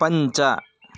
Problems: background sounds at intervals